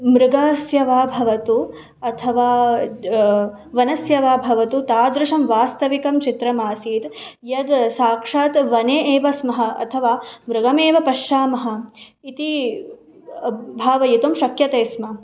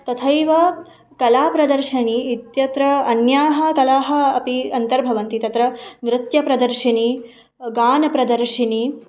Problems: none marked